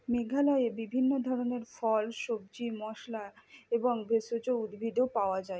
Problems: low volume